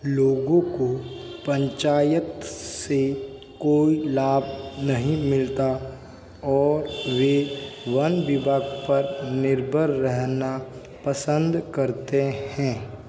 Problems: constant background noise